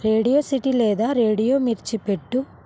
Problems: constant background noise